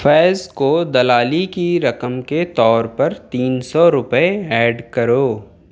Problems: none marked